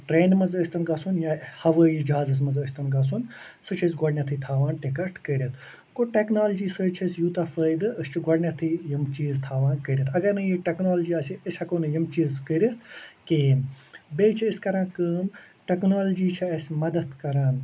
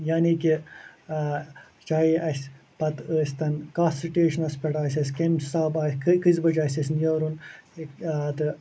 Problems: constant background noise